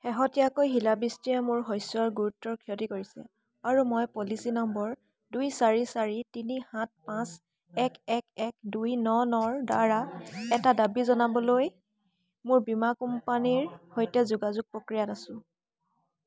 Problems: constant background noise, background conversations at intervals